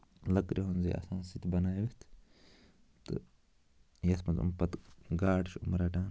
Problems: constant background noise